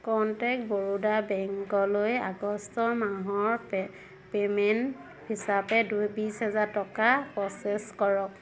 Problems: constant background noise